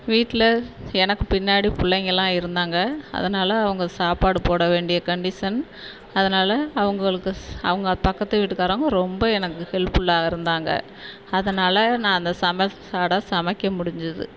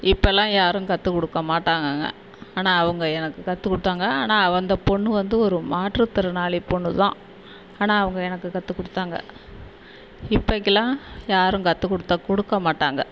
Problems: none marked